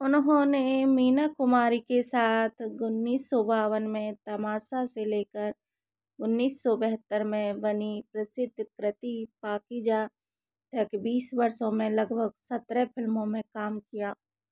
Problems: none marked